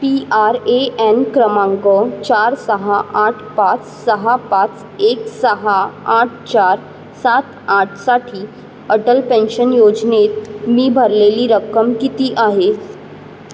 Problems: none marked